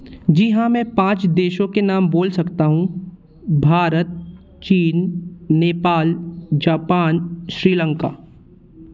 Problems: none marked